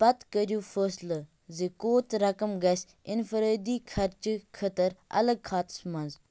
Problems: none marked